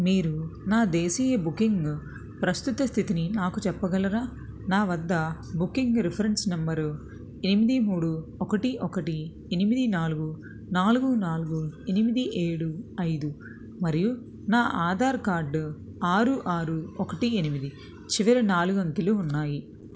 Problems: none marked